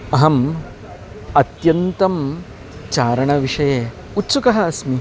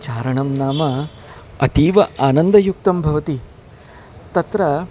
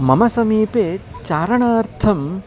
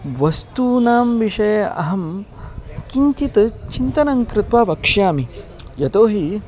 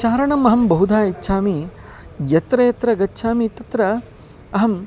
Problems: constant background noise, continuous background conversations